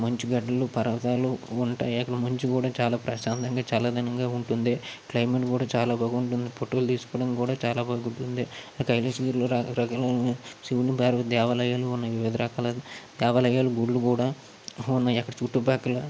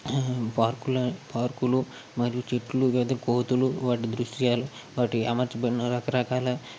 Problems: constant background noise